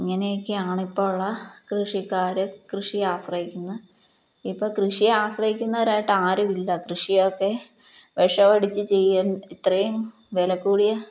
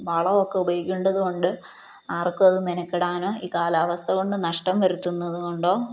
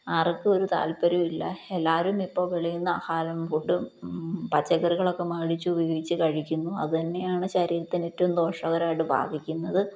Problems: none marked